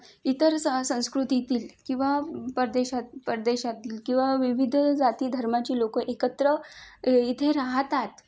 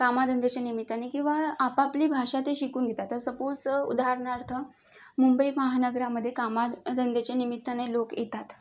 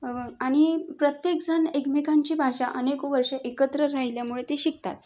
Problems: none marked